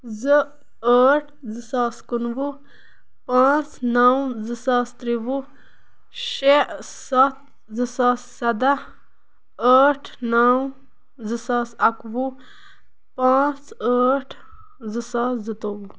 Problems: background sounds at intervals